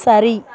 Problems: continuous background conversations